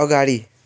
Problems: none marked